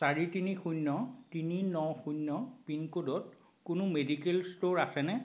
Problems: background sounds at intervals